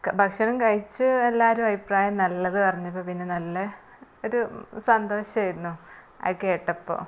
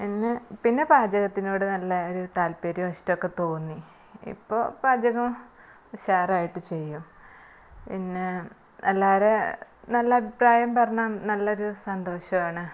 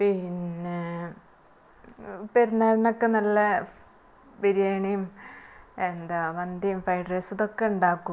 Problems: background sounds at intervals, low volume